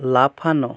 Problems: none marked